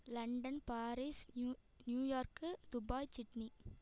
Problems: echo